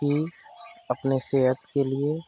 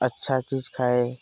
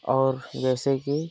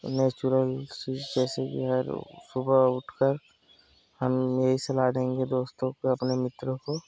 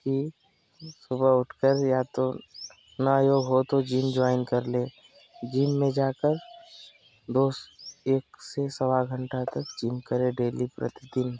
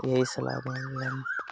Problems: constant background noise